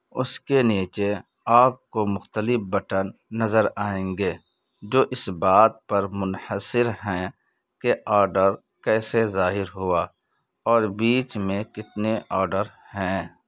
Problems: background sounds at intervals